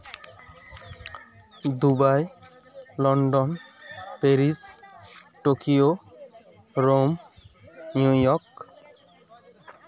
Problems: constant background noise, continuous background conversations